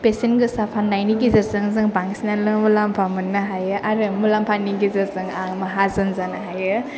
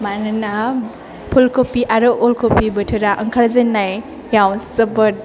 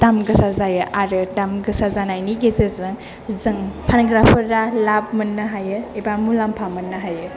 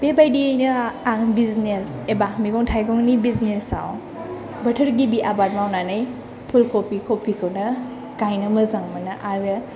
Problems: low volume